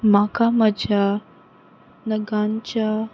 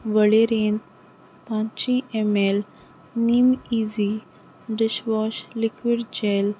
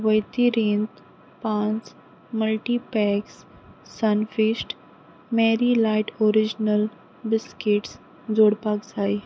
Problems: none marked